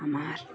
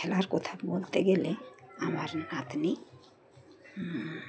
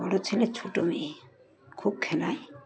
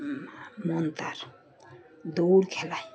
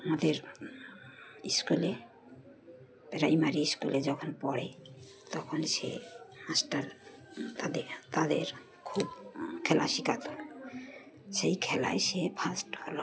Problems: constant background noise